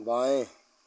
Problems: constant background noise